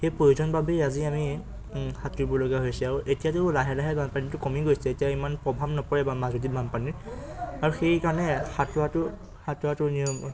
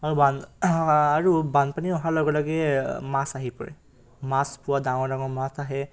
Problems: none marked